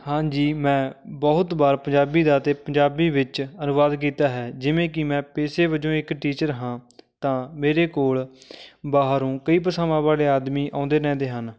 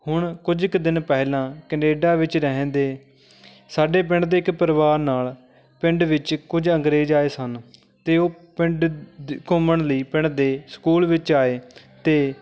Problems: none marked